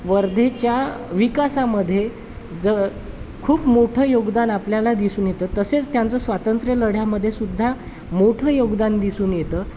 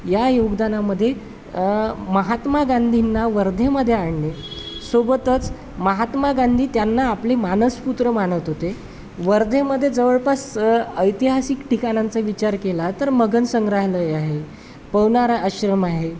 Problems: constant background noise, background conversations at intervals